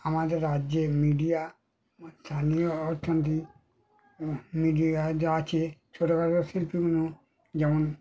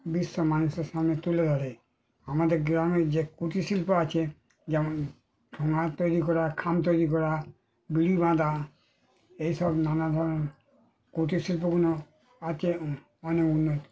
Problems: none marked